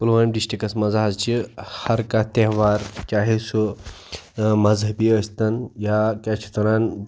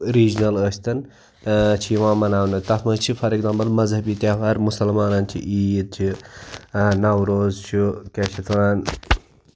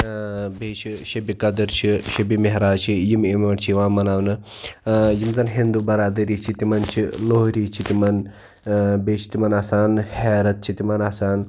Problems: background sounds at intervals